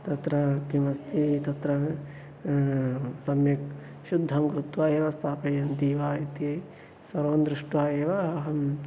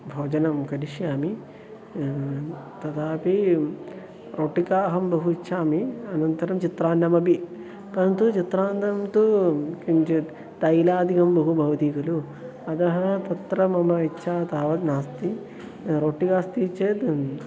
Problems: constant background noise, continuous background conversations